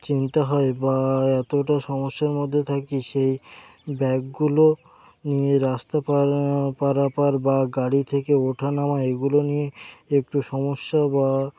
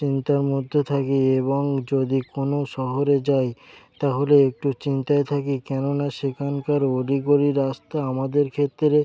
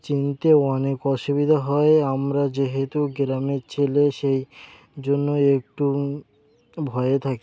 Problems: none marked